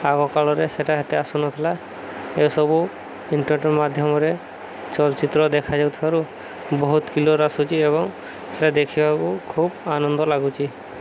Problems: none marked